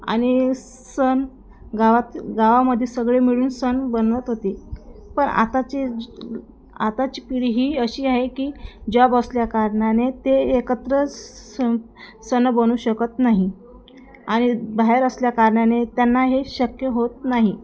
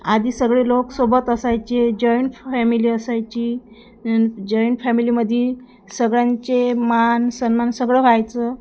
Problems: constant background noise, background conversations at intervals